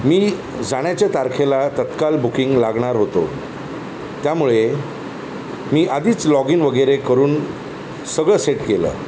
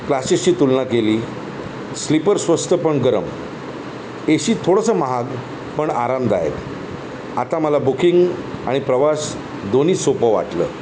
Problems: constant background noise